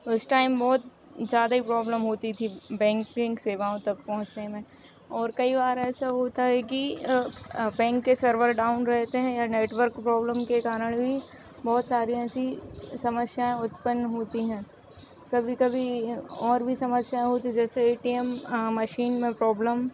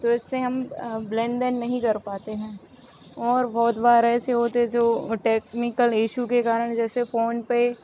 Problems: constant background noise